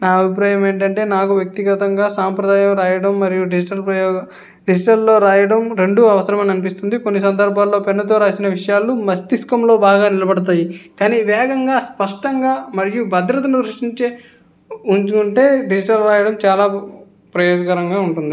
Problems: background sounds at intervals